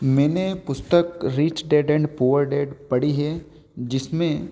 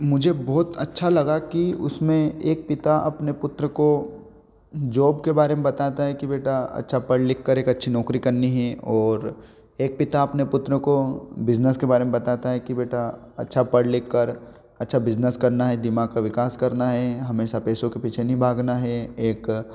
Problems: none marked